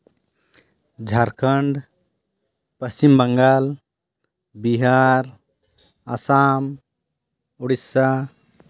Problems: none marked